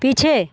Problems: constant background noise